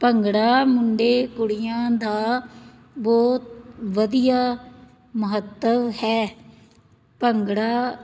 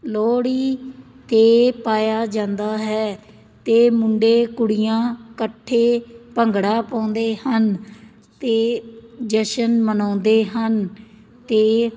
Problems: none marked